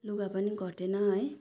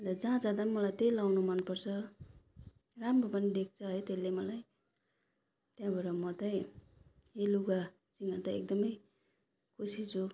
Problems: none marked